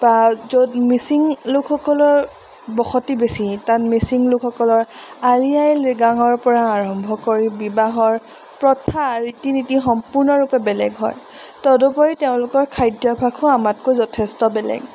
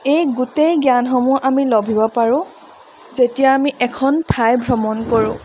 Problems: none marked